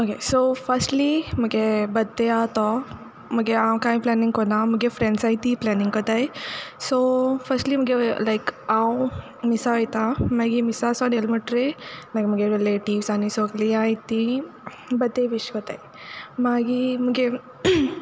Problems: none marked